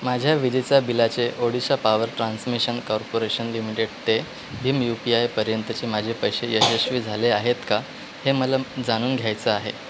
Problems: constant background noise